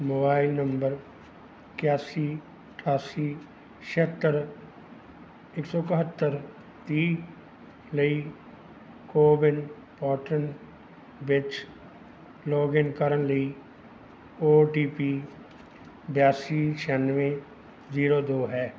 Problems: background sounds at intervals